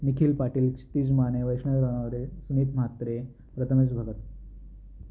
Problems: none marked